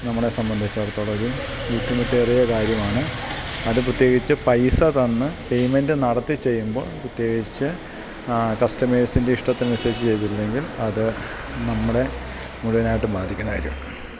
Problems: constant background noise